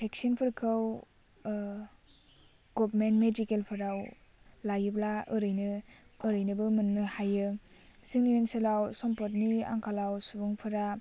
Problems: low volume